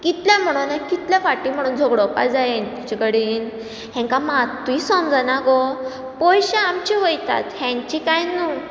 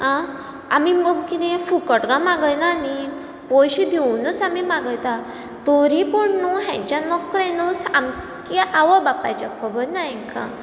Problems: background sounds at intervals